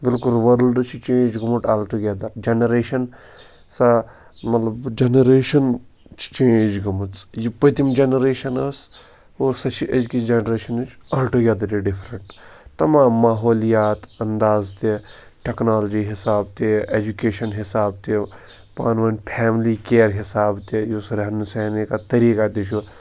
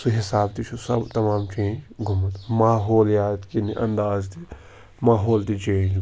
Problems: constant background noise